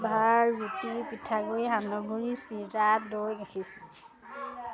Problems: continuous background conversations